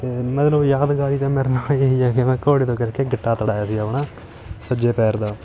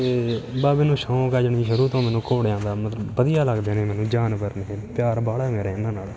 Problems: continuous background conversations